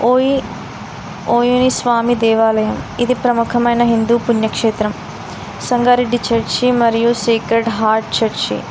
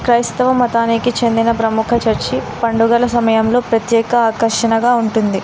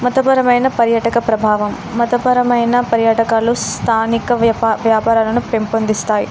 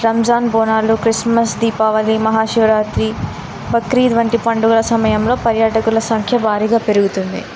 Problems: constant background noise